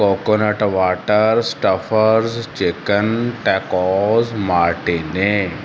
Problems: constant background noise